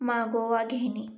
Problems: none marked